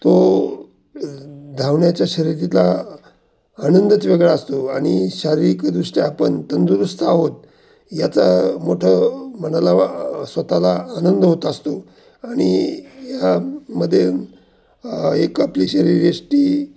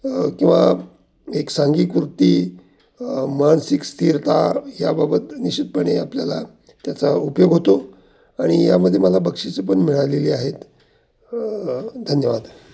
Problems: constant background noise